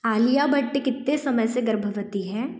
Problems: none marked